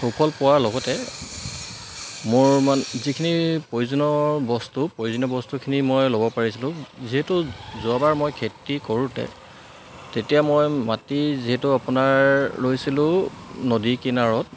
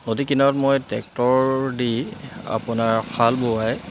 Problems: constant background noise